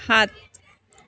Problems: background conversations at intervals